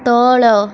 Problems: constant background noise